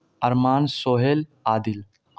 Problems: none marked